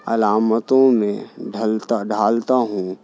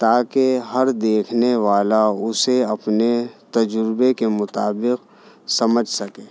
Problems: none marked